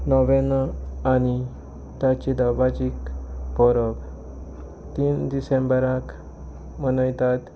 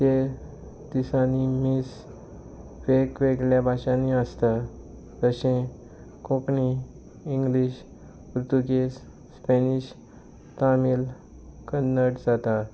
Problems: constant background noise